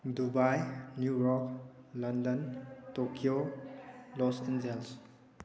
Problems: background conversations at intervals